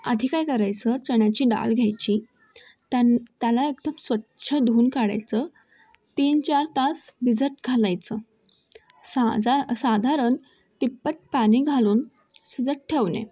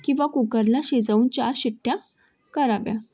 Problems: none marked